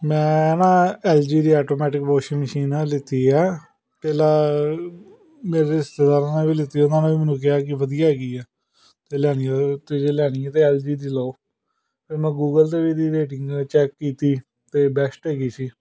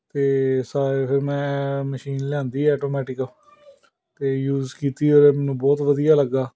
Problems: background sounds at intervals, background conversations at intervals